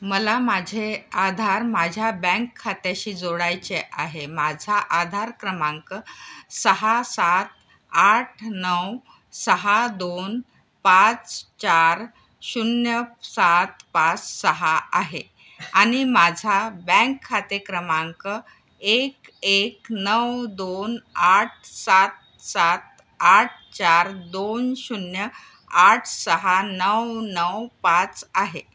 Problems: none marked